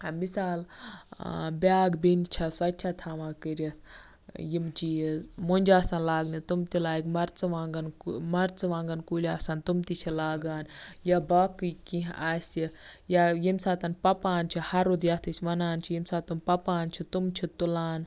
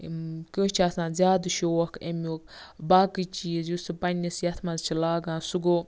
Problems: none marked